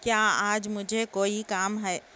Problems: constant background noise, low volume